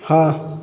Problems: background sounds at intervals